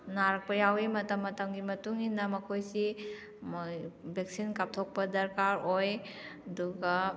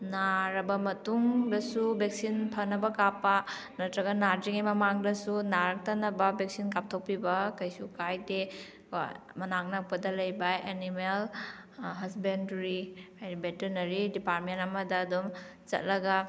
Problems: none marked